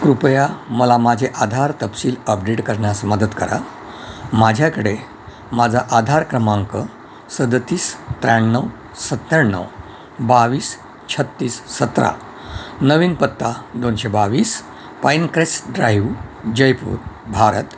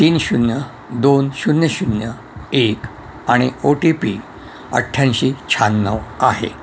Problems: none marked